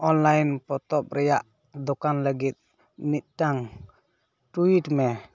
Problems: none marked